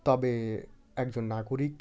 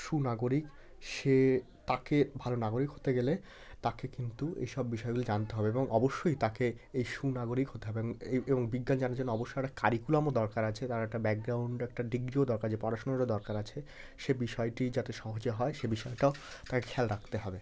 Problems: background sounds at intervals, continuous background conversations